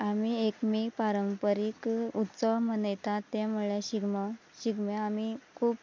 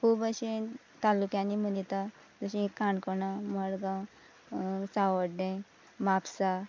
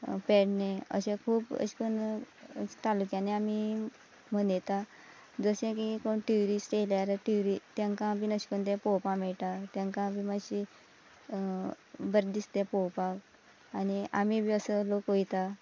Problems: background conversations at intervals